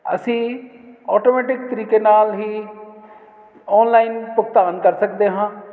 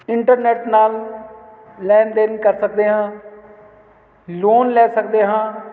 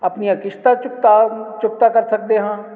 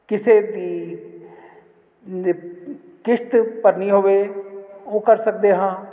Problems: constant background noise